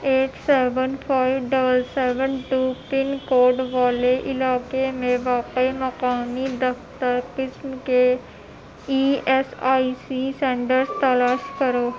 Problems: constant background noise, background conversations at intervals